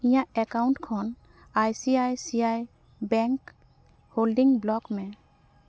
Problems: none marked